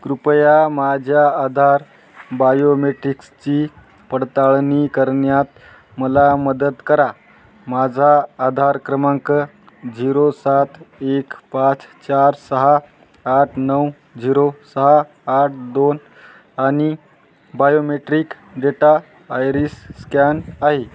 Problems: constant background noise